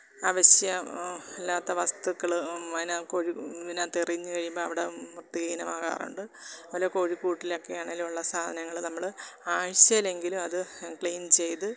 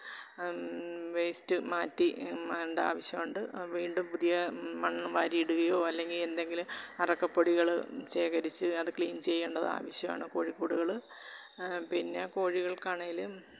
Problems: background sounds at intervals